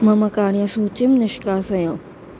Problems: constant background noise